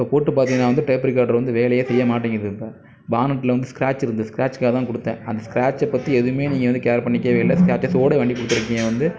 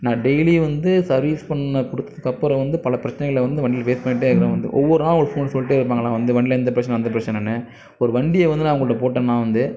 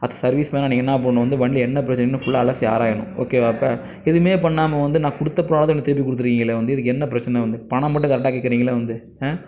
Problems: background sounds at intervals